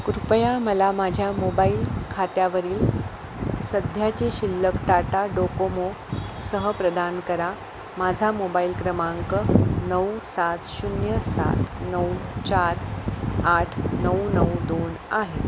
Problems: constant background noise